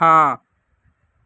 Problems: none marked